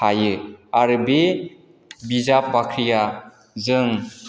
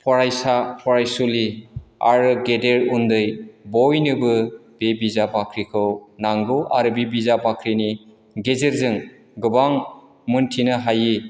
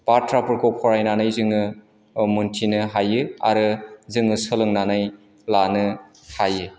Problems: none marked